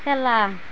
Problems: none marked